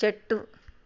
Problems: none marked